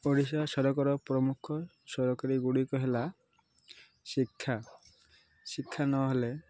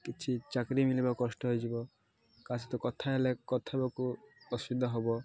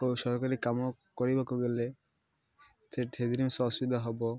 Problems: constant background noise, continuous background conversations